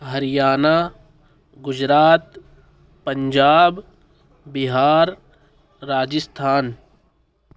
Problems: none marked